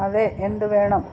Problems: constant background noise